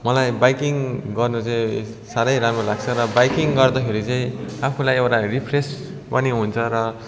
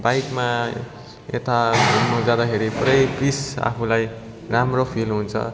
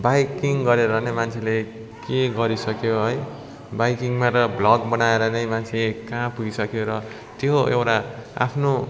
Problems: constant background noise